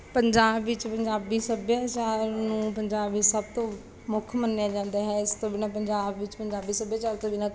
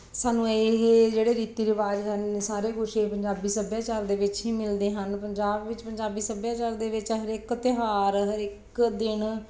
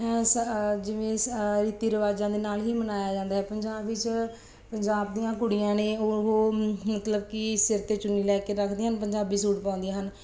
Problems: none marked